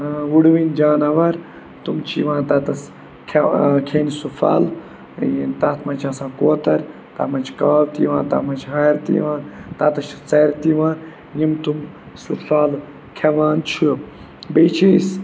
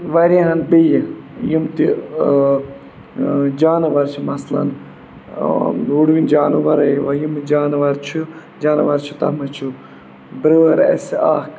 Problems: constant background noise